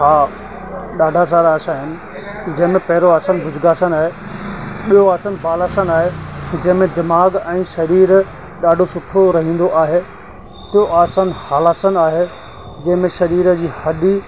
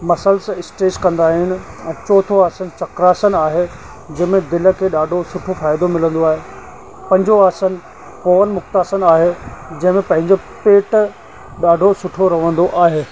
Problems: constant background noise, echo